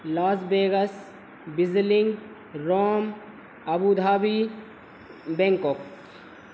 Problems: none marked